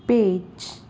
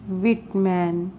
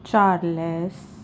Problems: constant background noise